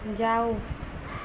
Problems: constant background noise